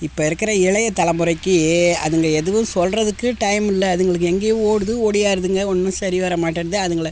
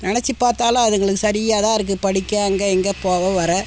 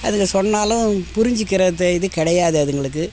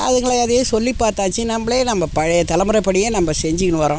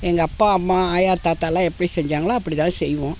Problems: background sounds at intervals